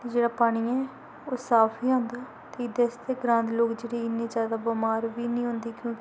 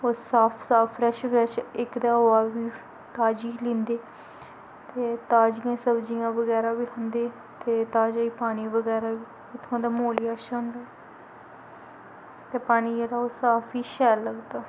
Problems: constant background noise